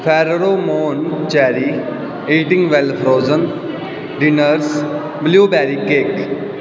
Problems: continuous background conversations